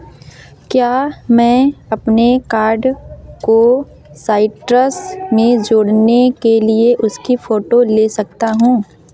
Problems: none marked